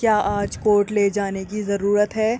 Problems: constant background noise